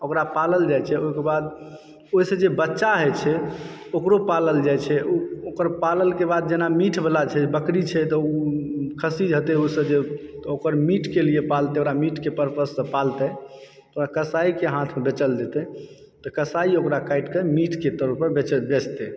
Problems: background sounds at intervals